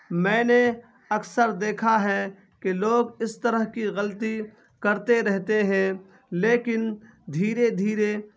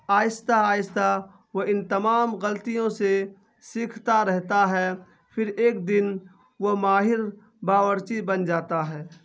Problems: constant background noise